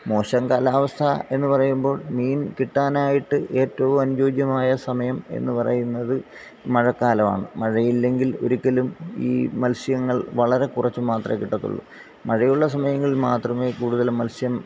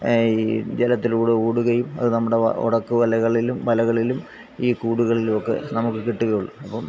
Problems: background sounds at intervals